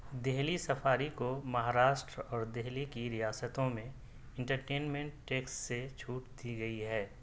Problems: none marked